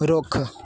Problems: background sounds at intervals